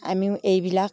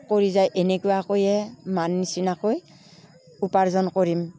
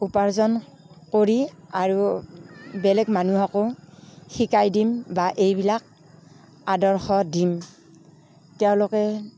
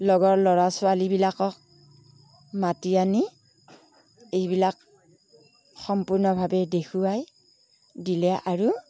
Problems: background conversations at intervals